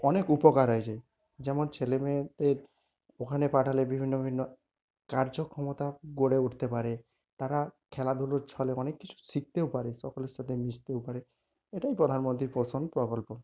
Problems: none marked